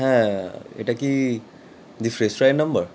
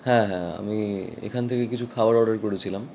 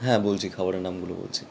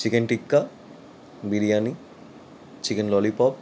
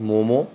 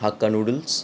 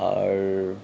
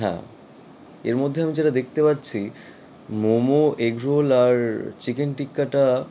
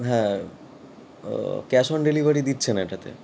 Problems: none marked